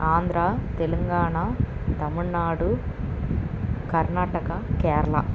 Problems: constant background noise